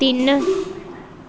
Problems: background sounds at intervals